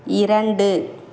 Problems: constant background noise